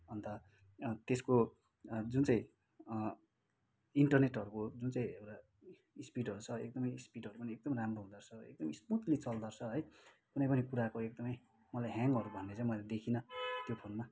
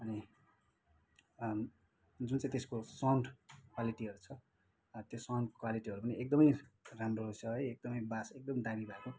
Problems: background sounds at intervals